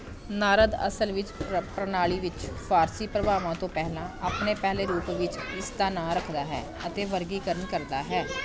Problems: continuous background conversations